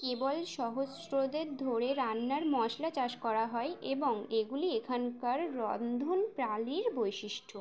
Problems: background sounds at intervals